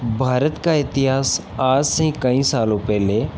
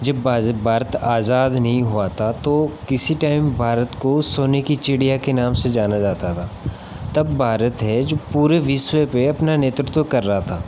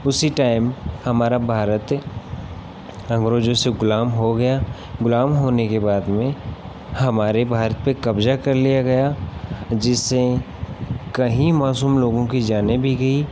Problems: none marked